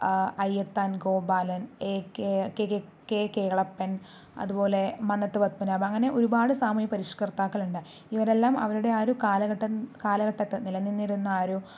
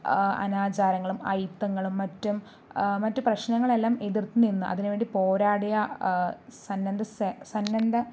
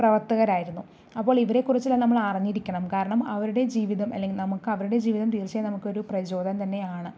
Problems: none marked